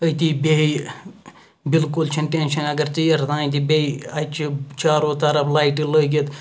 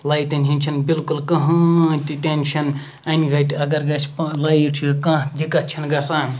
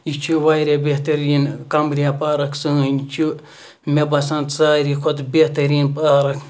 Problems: background sounds at intervals